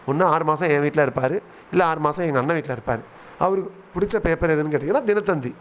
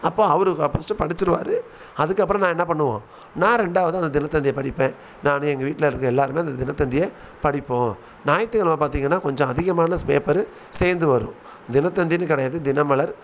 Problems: none marked